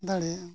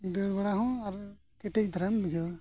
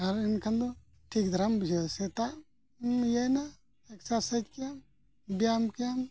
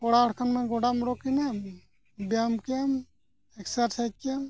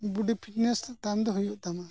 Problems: none marked